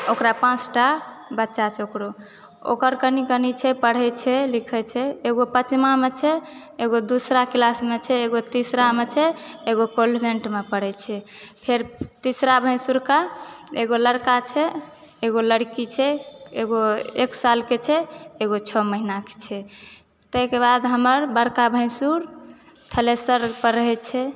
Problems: background sounds at intervals